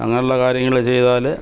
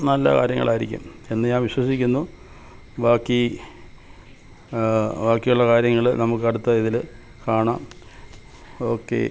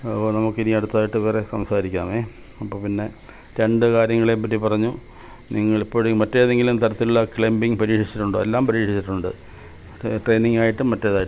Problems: background sounds at intervals